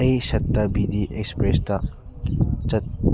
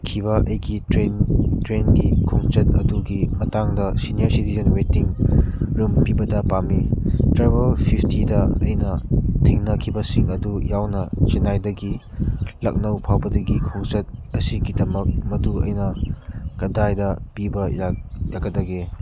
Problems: constant background noise